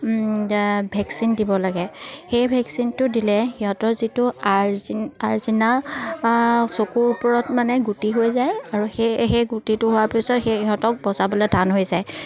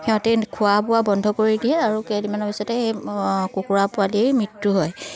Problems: none marked